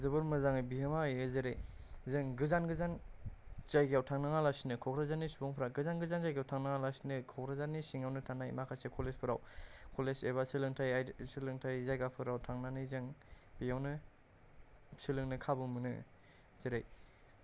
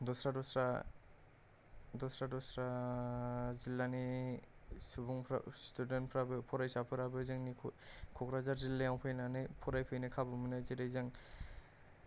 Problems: none marked